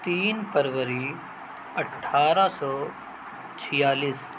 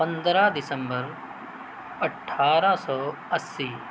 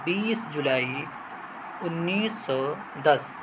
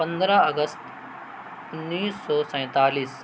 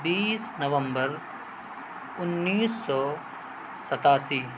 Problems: constant background noise